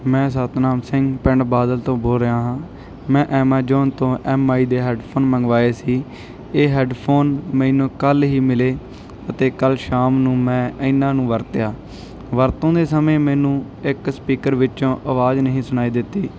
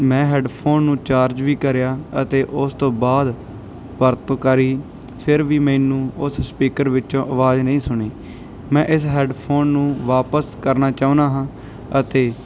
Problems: background sounds at intervals